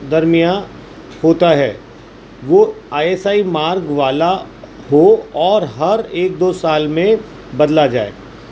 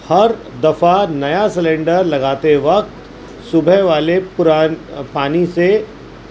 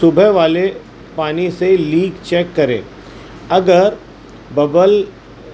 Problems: constant background noise